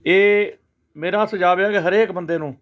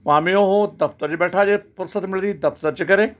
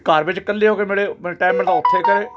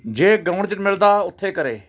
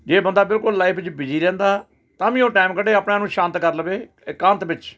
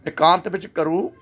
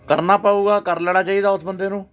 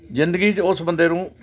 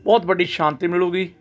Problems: constant background noise